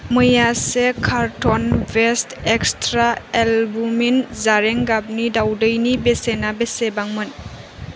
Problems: constant background noise